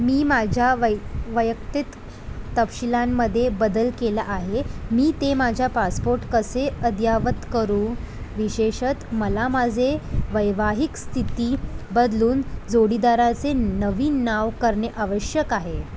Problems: constant background noise